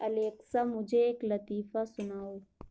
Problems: constant background noise